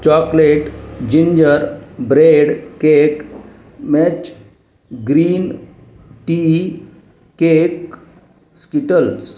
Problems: none marked